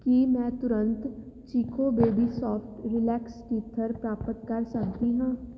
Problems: background sounds at intervals